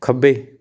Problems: none marked